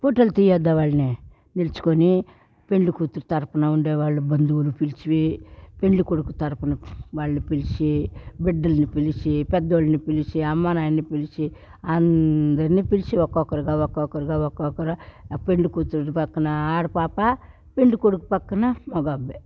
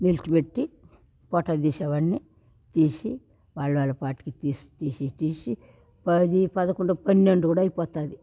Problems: background sounds at intervals